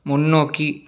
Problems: none marked